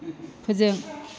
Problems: none marked